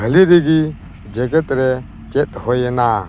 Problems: constant background noise